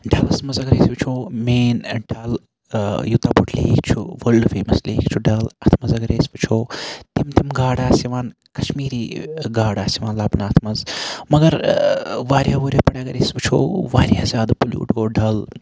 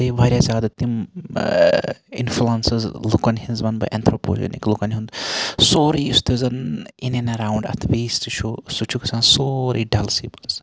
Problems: background sounds at intervals